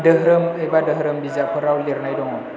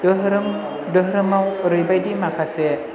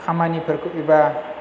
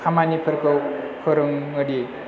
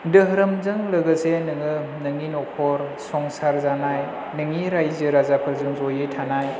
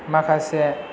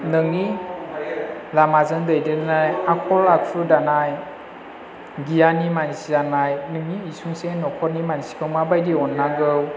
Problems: constant background noise, low volume